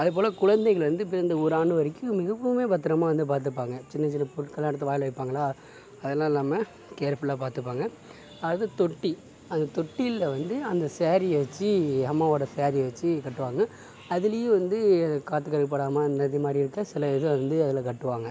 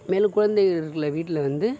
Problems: none marked